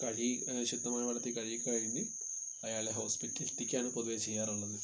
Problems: constant background noise